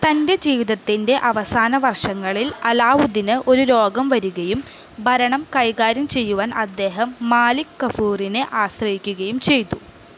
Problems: none marked